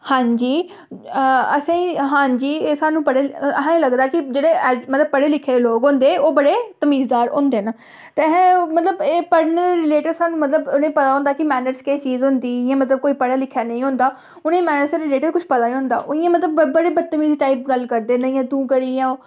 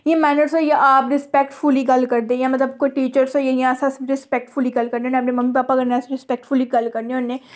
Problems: none marked